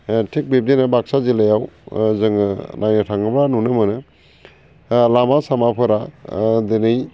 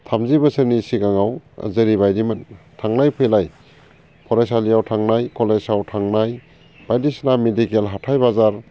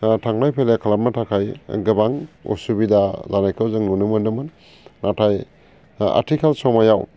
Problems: constant background noise